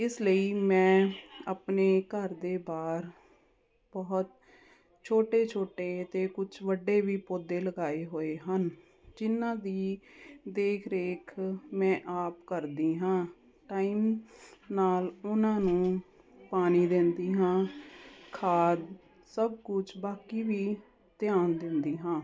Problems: none marked